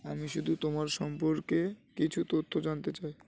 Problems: constant background noise